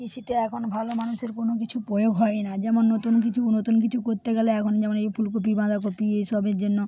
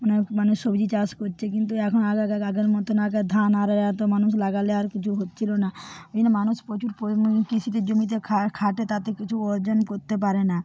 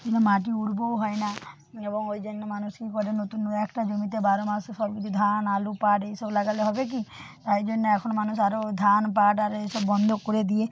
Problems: none marked